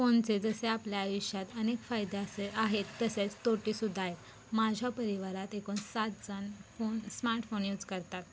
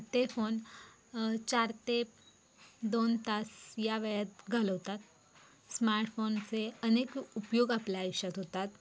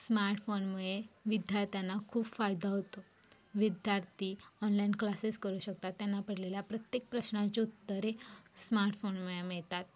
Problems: background sounds at intervals